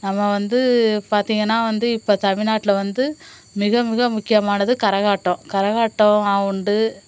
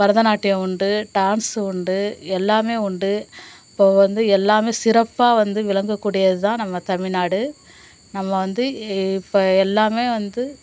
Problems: constant background noise